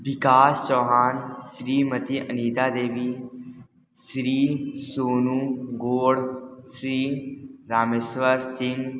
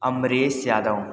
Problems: background sounds at intervals, echo